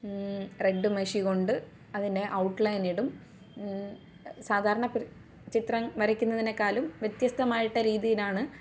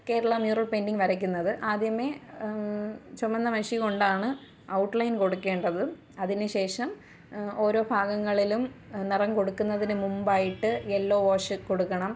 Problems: low volume